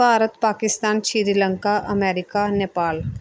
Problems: background sounds at intervals